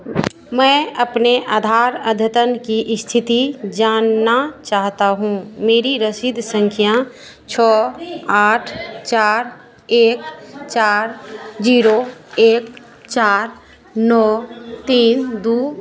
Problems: constant background noise